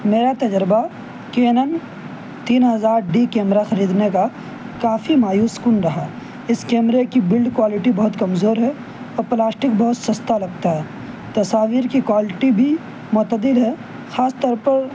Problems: constant background noise